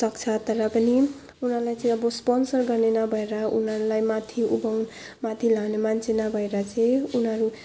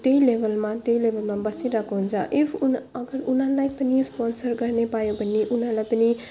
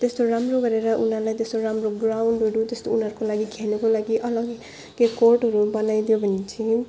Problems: background sounds at intervals